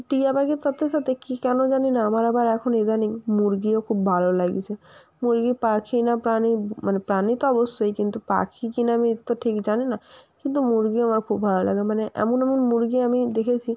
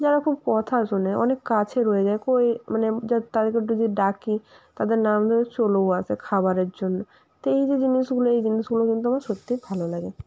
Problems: constant background noise